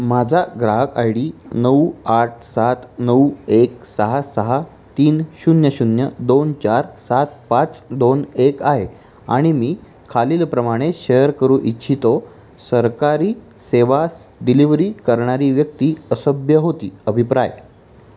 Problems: constant background noise